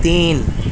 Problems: constant background noise